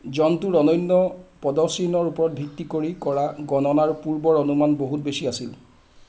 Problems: constant background noise